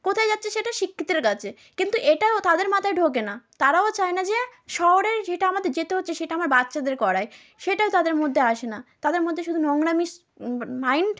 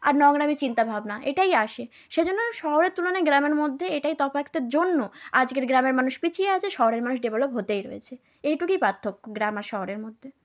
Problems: background conversations at intervals